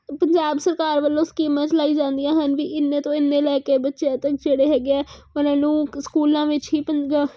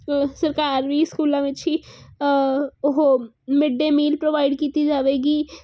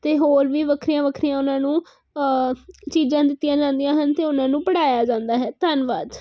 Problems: constant background noise